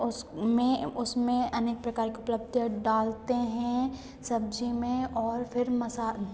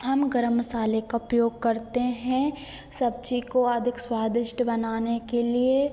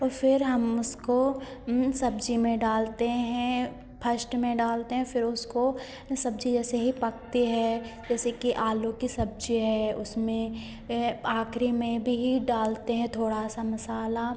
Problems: none marked